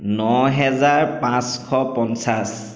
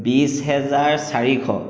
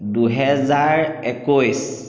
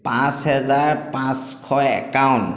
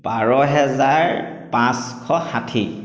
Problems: echo